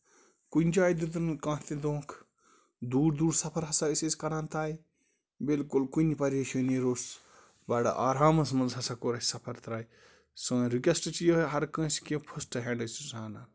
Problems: none marked